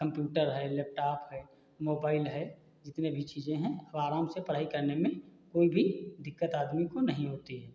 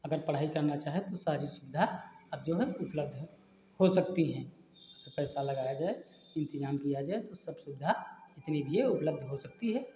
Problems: constant background noise